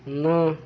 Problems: constant background noise